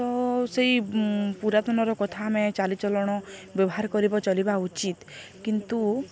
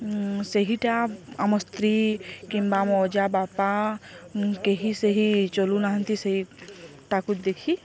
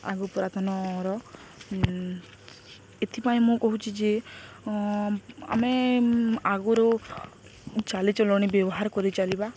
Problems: none marked